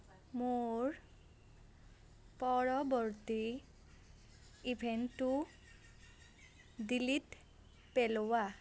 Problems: none marked